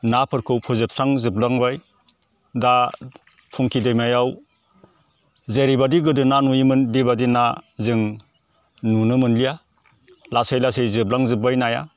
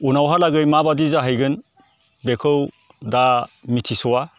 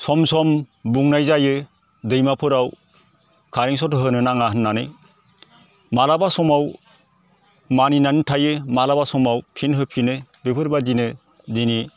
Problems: none marked